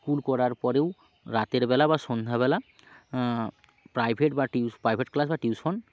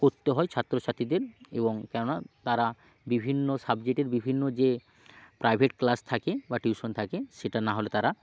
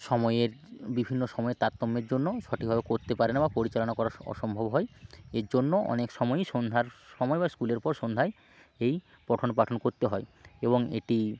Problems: background sounds at intervals